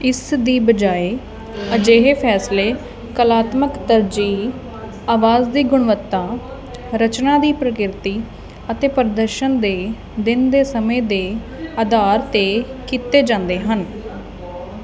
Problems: continuous background conversations